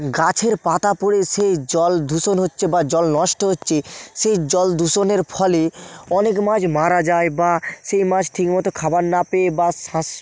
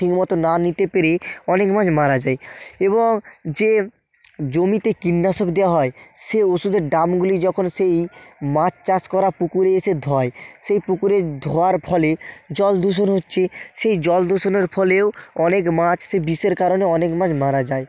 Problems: constant background noise